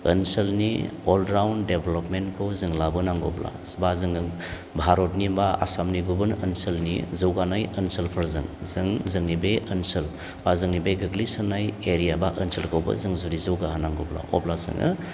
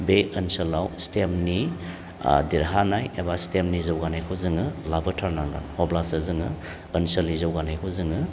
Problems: none marked